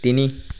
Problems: background sounds at intervals